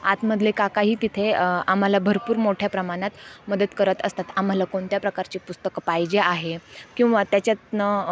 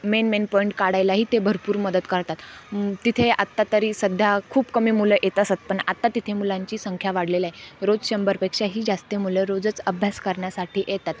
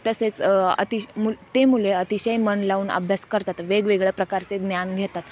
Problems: none marked